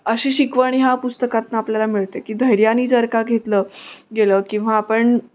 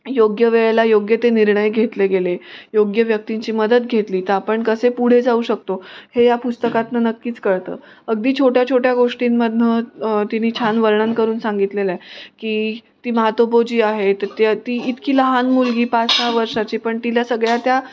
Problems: none marked